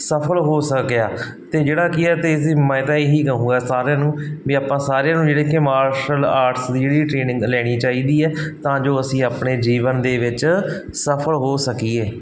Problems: background sounds at intervals